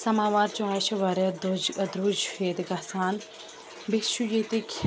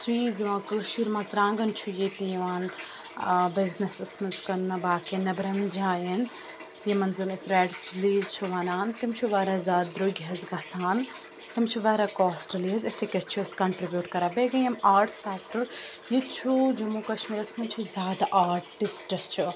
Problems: constant background noise